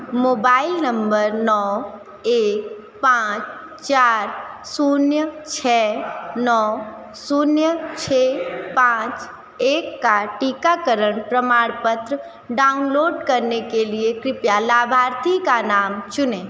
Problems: constant background noise